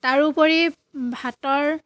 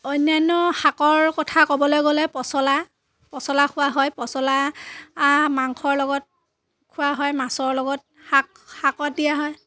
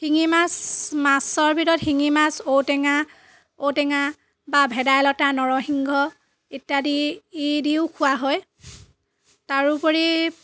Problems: background sounds at intervals